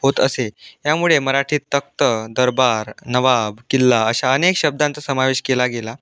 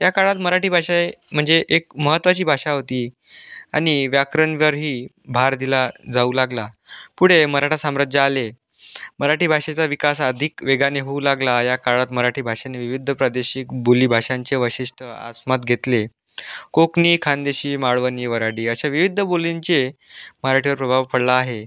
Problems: constant background noise